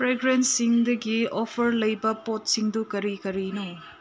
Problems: low volume